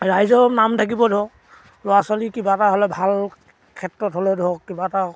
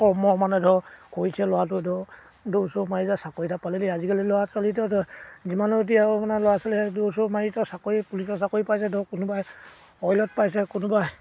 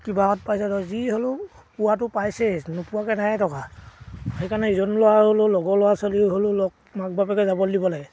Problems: background sounds at intervals